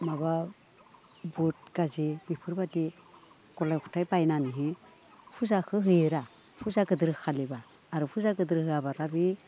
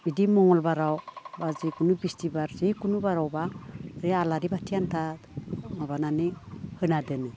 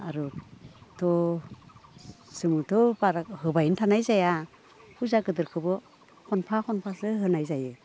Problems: background conversations at intervals